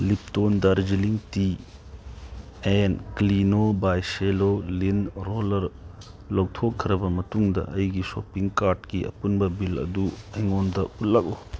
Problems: background sounds at intervals